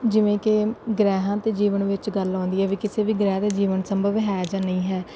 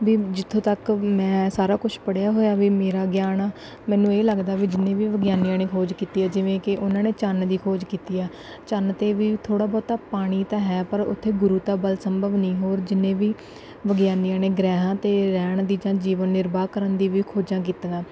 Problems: none marked